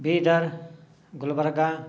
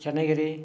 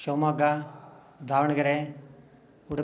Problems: none marked